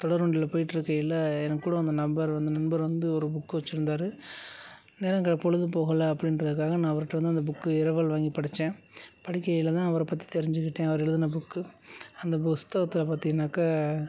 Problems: low volume